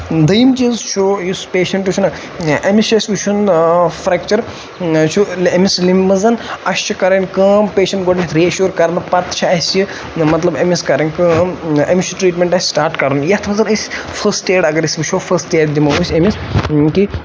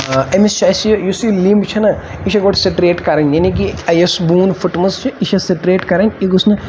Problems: constant background noise